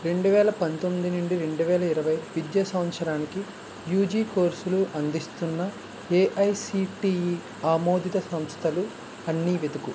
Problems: constant background noise